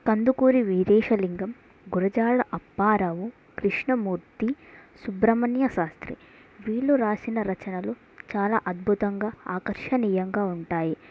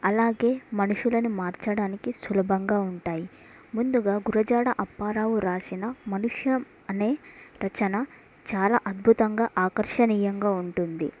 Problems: none marked